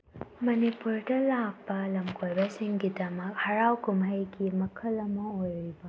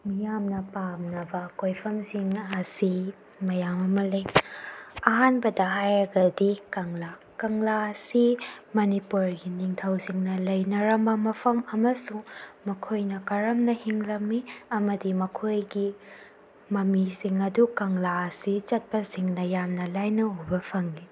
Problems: none marked